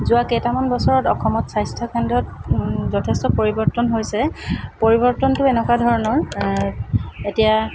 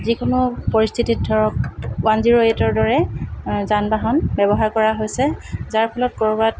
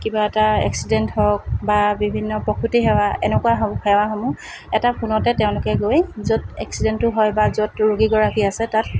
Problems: constant background noise